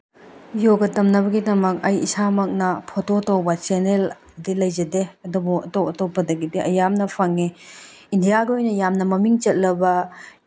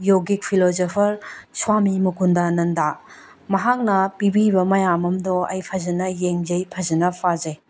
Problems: none marked